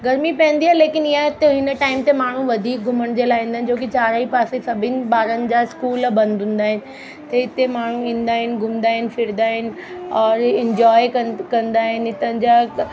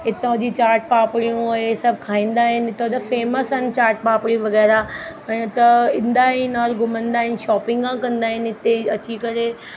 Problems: constant background noise